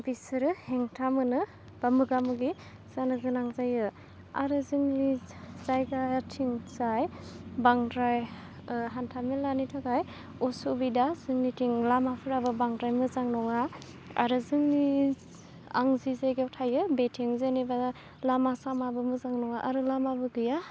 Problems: constant background noise